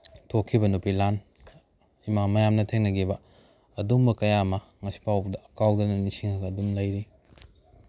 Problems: background sounds at intervals